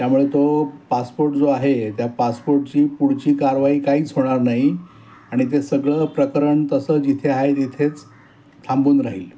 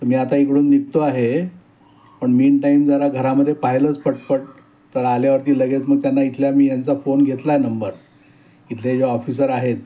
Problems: none marked